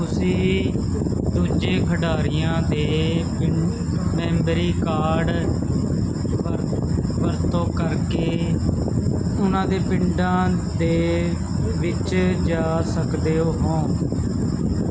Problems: constant background noise